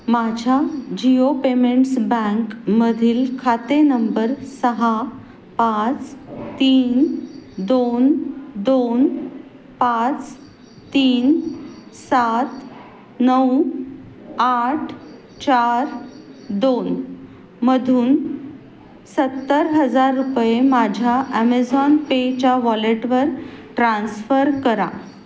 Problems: constant background noise